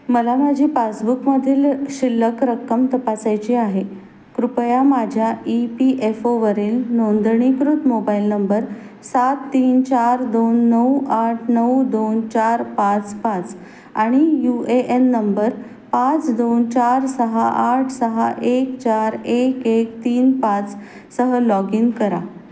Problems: background sounds at intervals